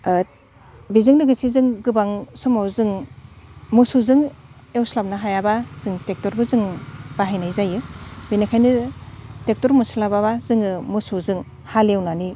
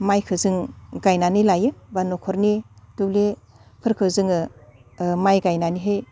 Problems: constant background noise